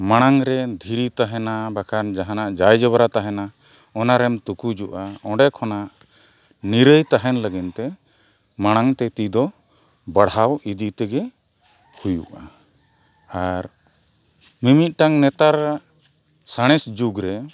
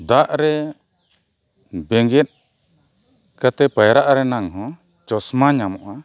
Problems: none marked